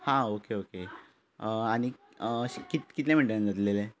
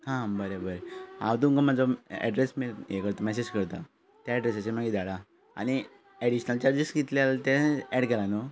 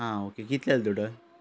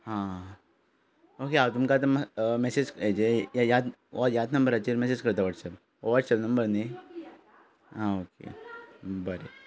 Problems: background sounds at intervals